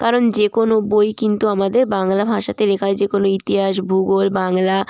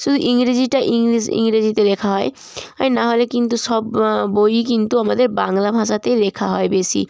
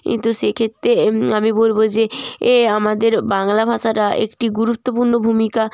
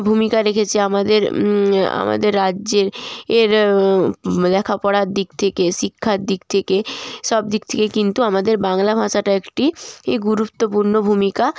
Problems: none marked